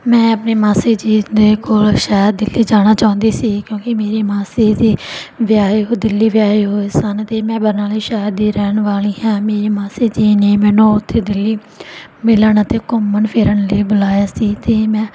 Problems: background sounds at intervals